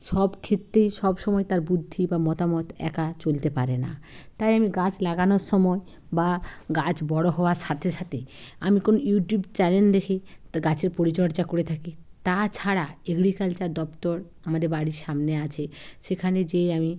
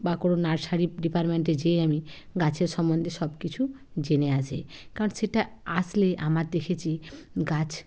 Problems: none marked